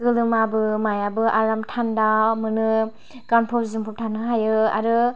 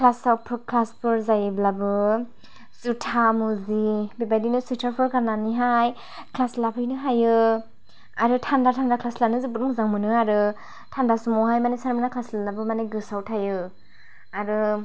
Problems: none marked